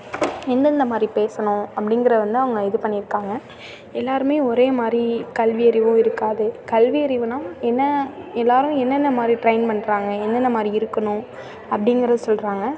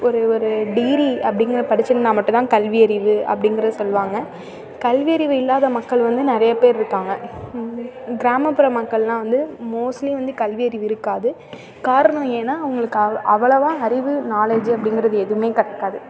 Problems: none marked